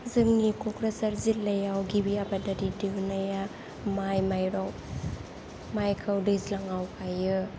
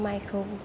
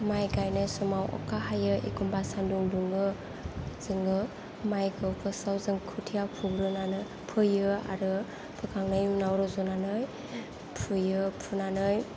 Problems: low volume